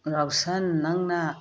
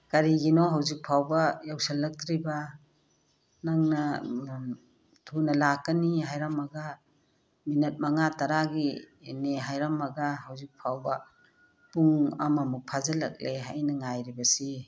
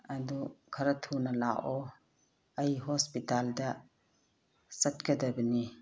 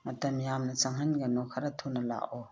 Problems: none marked